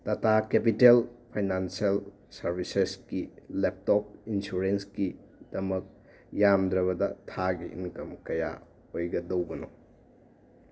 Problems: constant background noise